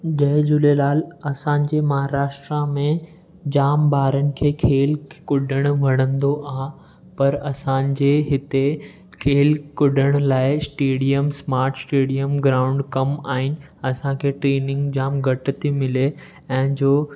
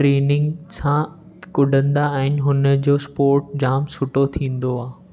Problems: none marked